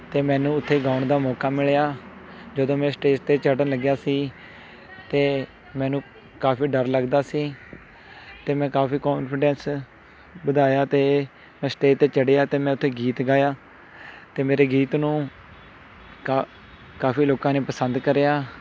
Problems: continuous background conversations